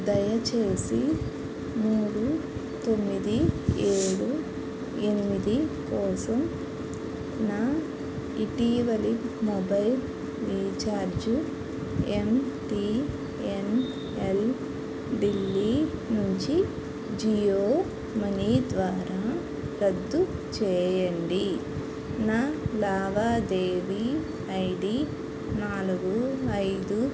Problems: constant background noise